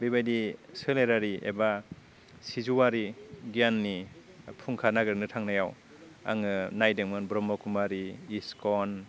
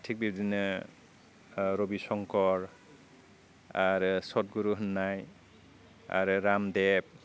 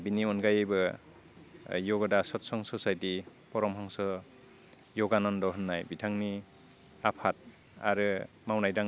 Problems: none marked